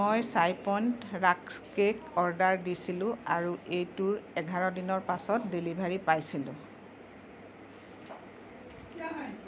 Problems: background conversations at intervals